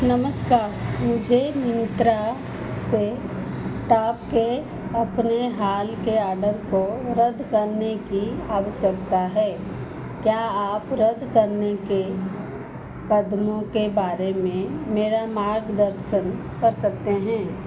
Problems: none marked